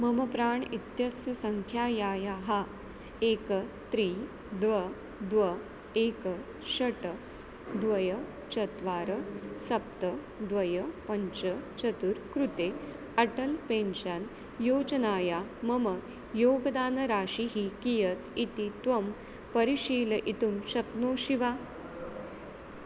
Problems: constant background noise